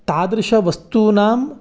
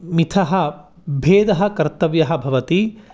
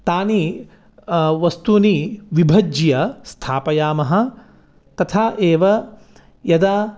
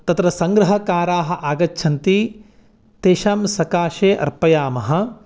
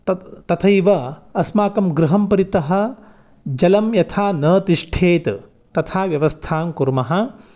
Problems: none marked